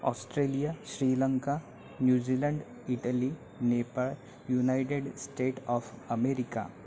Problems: background sounds at intervals, background conversations at intervals